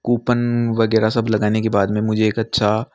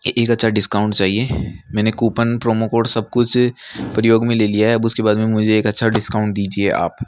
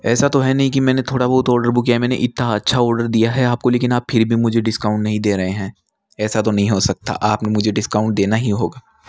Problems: none marked